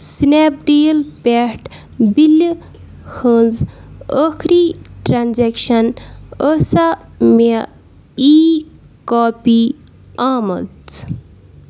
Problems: none marked